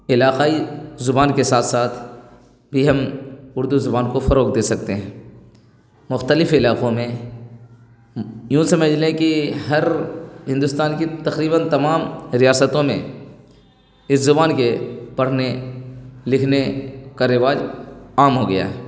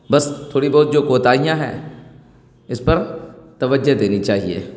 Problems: none marked